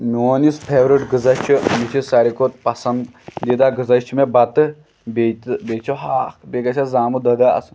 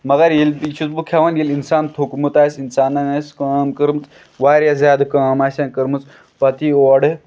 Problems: background sounds at intervals